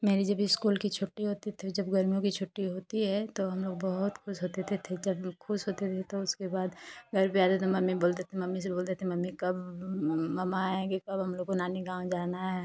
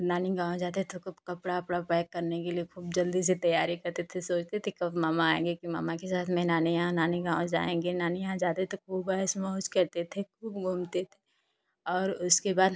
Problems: none marked